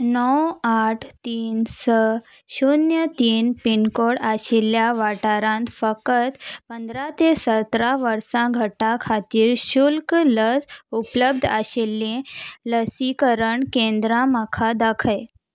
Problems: background sounds at intervals